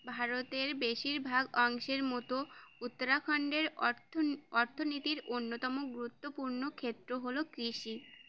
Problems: constant background noise